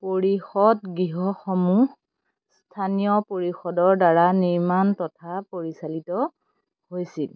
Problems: constant background noise